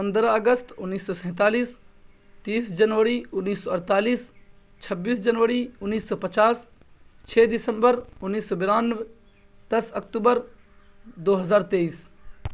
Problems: constant background noise